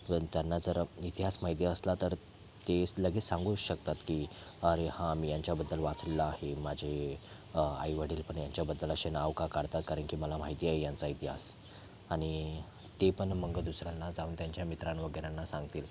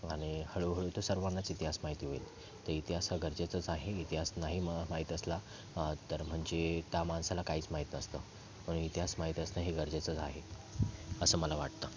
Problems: constant background noise, continuous background conversations